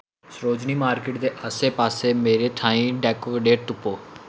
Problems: constant background noise